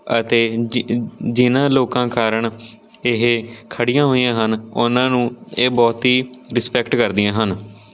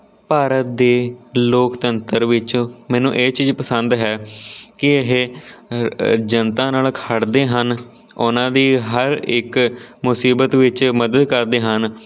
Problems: background sounds at intervals